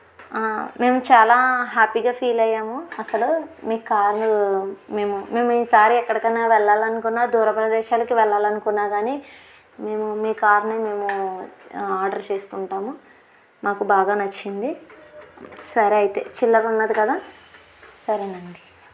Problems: none marked